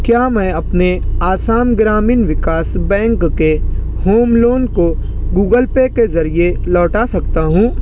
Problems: constant background noise